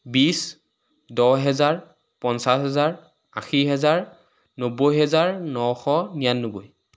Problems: constant background noise